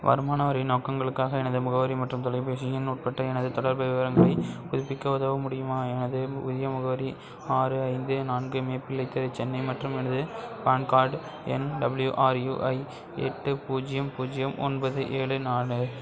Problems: background sounds at intervals, background conversations at intervals